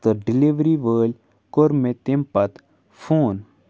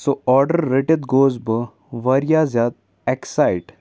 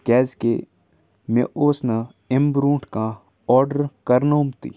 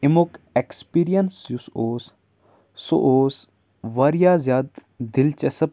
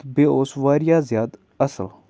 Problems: background sounds at intervals